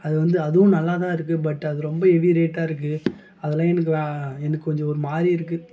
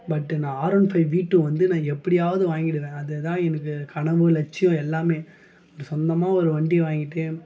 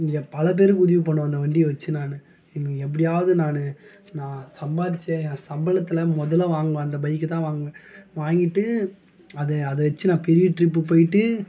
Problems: none marked